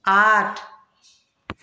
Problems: none marked